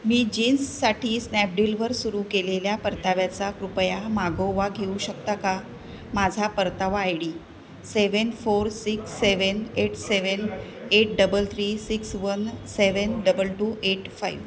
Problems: constant background noise, background conversations at intervals